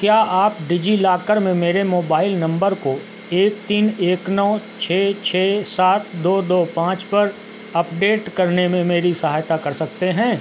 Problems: constant background noise